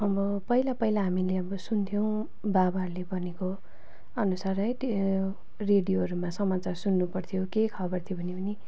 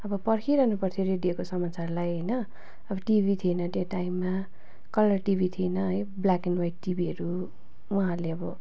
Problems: constant background noise, continuous background conversations